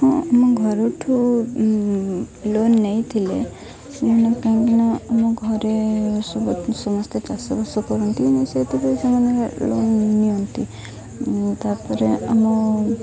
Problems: constant background noise, continuous background conversations